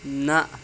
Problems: constant background noise